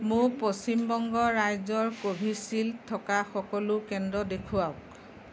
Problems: background conversations at intervals